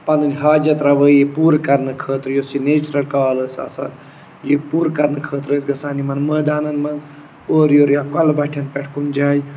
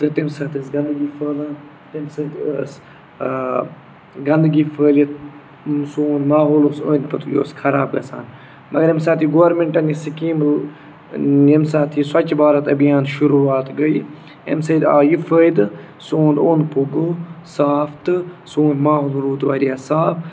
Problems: none marked